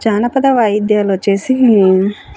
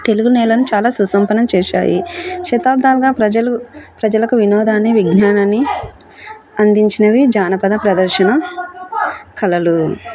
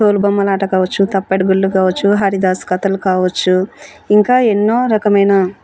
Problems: background conversations at intervals